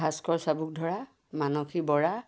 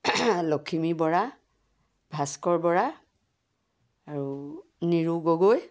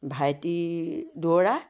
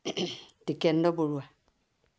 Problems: background sounds at intervals